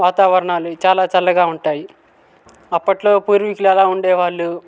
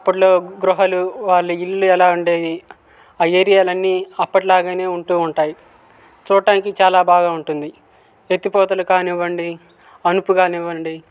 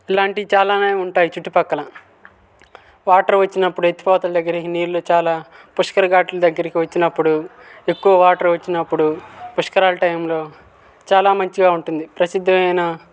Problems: background sounds at intervals